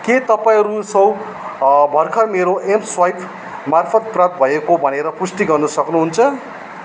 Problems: background sounds at intervals